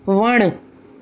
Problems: constant background noise